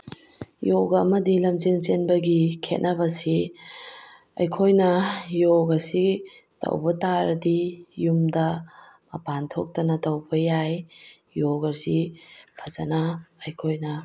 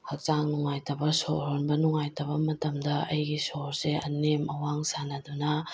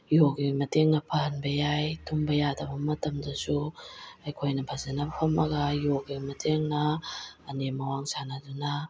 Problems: none marked